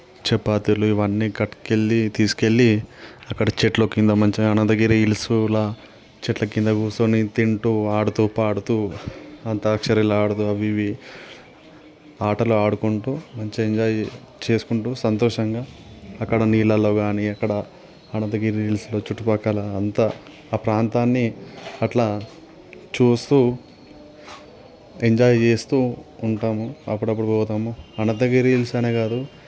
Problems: constant background noise